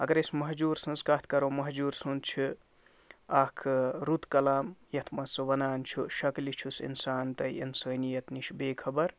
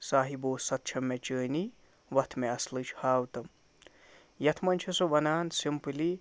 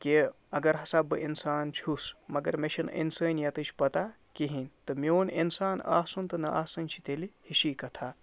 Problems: none marked